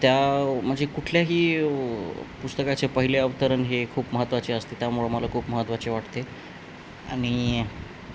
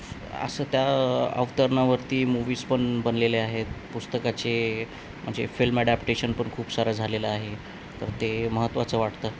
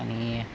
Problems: none marked